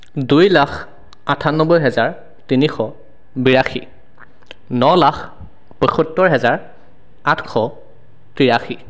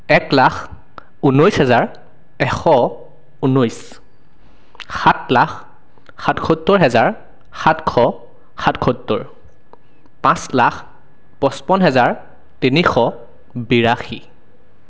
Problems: none marked